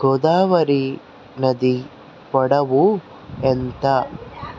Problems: none marked